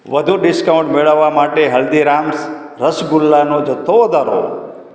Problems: background sounds at intervals